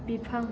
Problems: none marked